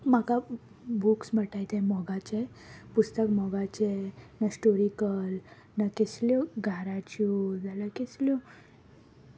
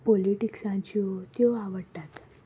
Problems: background sounds at intervals